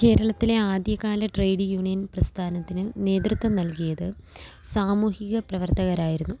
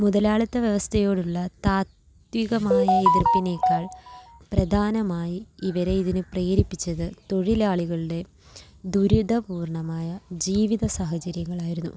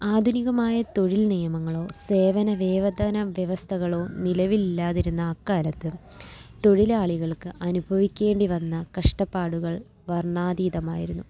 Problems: background sounds at intervals